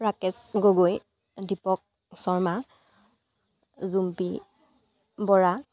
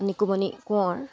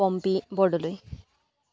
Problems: none marked